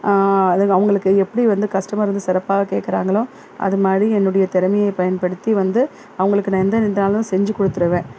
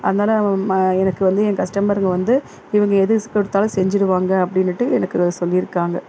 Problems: constant background noise